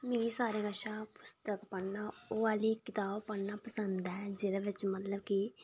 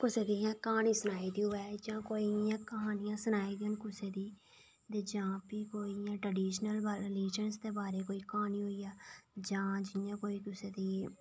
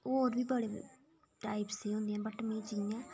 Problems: low volume